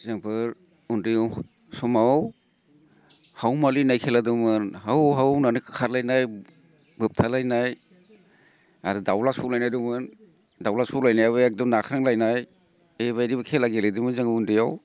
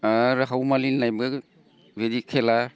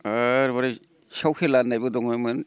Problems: none marked